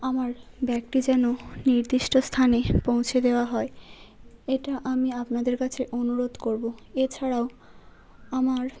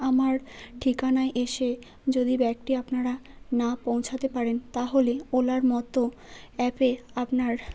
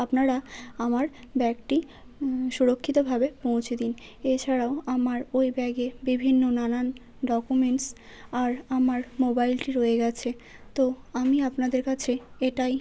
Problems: constant background noise